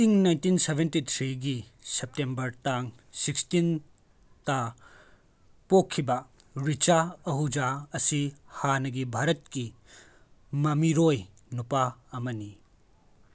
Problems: none marked